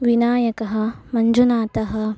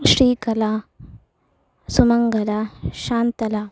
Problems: background sounds at intervals